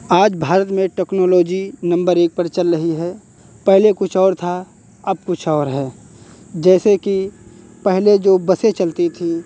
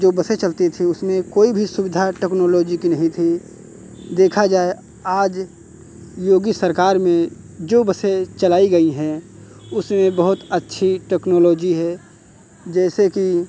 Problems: constant background noise, background conversations at intervals